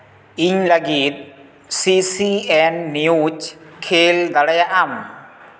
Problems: constant background noise, echo